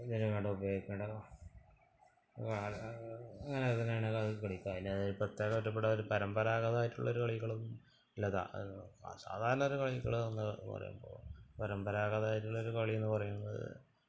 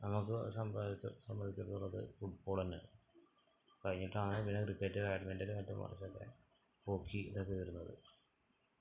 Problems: background sounds at intervals, low volume